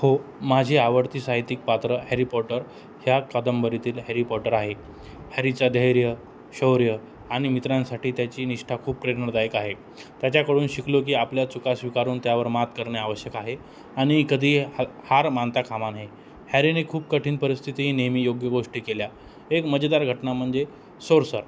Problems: none marked